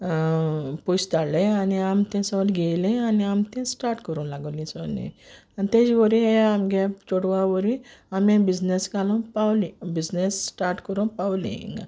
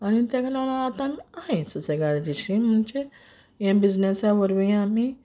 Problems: none marked